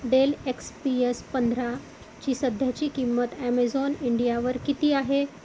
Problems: constant background noise